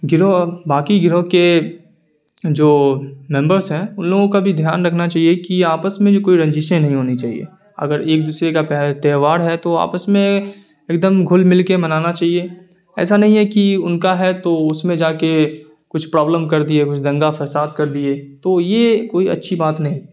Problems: constant background noise